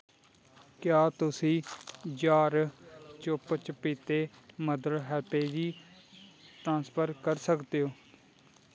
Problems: background sounds at intervals